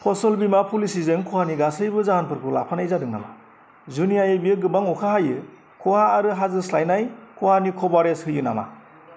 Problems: none marked